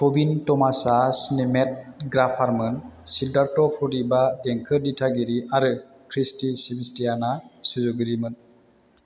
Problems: none marked